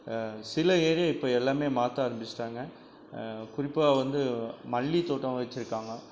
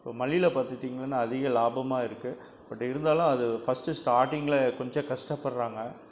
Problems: none marked